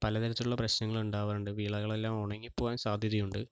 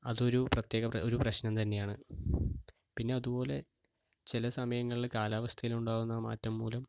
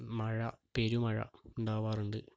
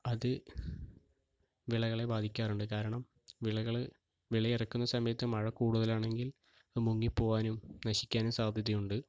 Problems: low volume